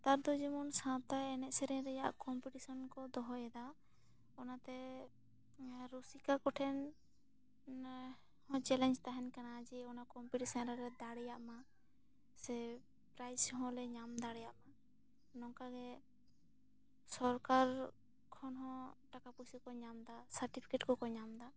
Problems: none marked